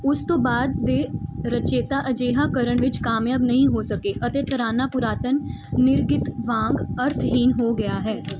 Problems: background sounds at intervals